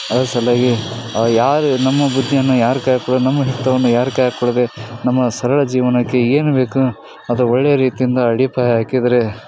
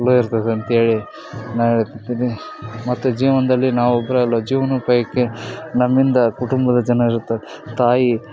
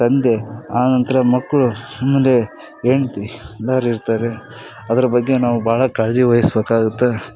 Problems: none marked